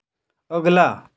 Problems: none marked